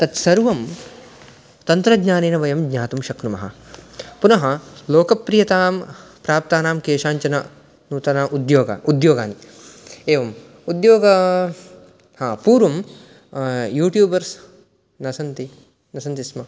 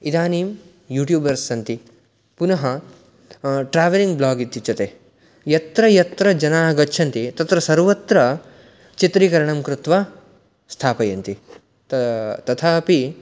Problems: none marked